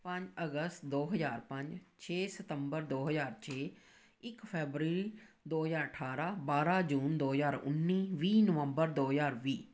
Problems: background sounds at intervals